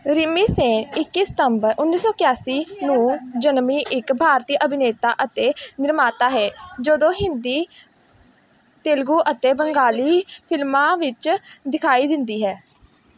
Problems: background sounds at intervals